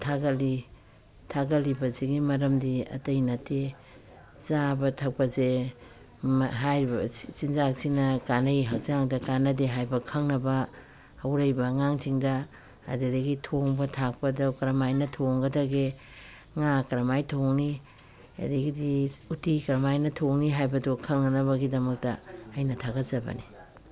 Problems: none marked